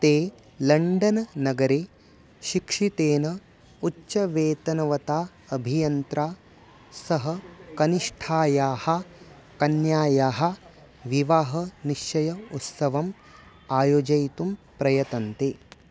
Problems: none marked